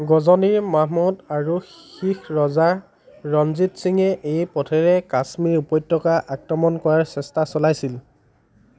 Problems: background conversations at intervals